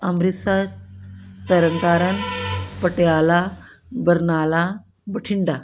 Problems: background sounds at intervals